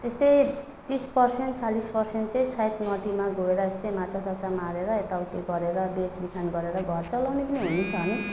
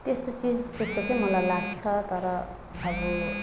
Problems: background sounds at intervals